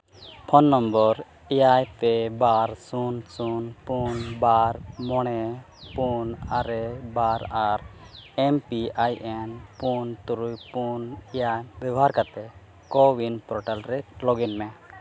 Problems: constant background noise